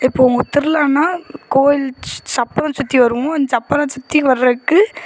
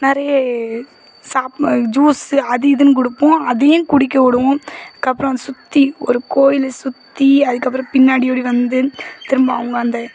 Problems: background sounds at intervals, background conversations at intervals